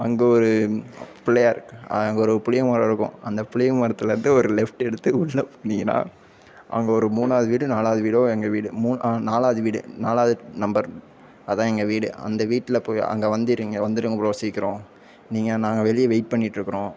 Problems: background sounds at intervals